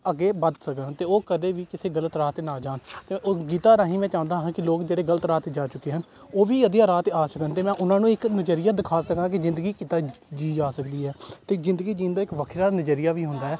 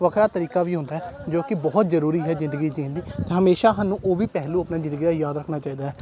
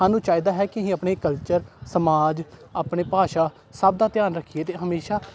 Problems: constant background noise, continuous background conversations